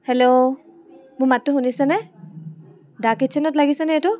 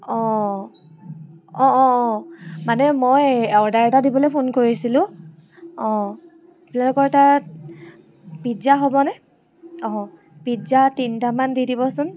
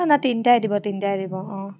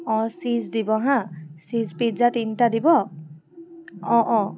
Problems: none marked